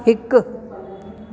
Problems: constant background noise, echo